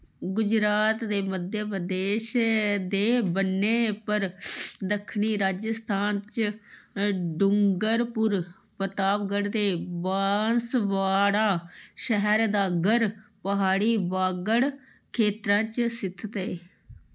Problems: low volume